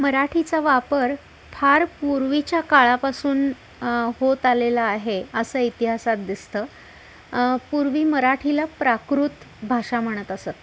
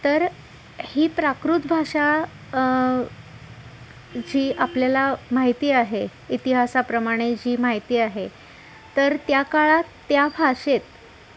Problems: constant background noise, background conversations at intervals